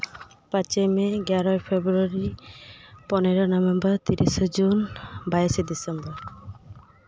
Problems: background conversations at intervals